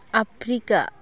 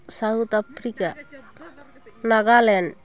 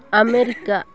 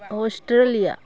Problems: constant background noise, continuous background conversations